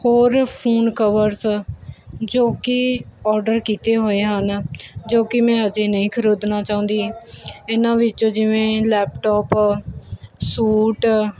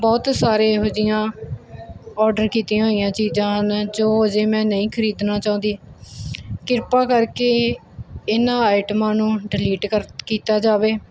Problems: none marked